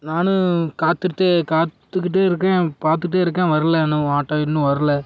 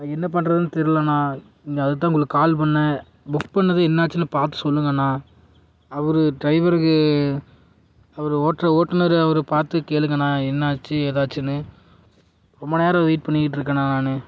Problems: none marked